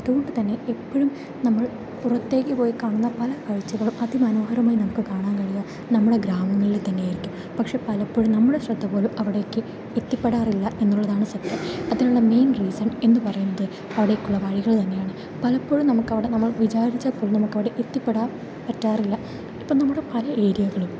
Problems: constant background noise